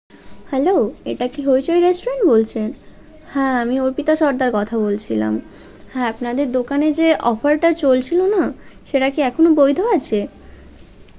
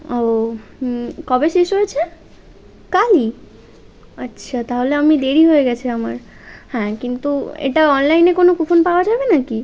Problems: constant background noise